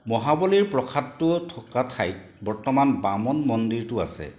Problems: none marked